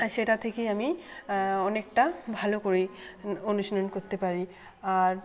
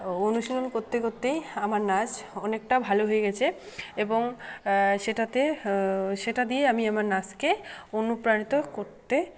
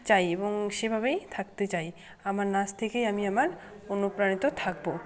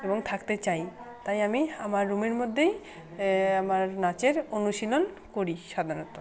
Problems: constant background noise, continuous background conversations